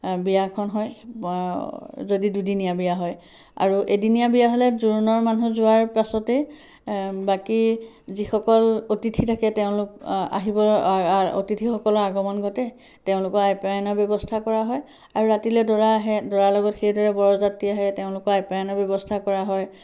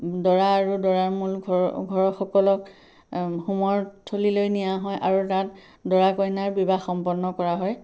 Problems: none marked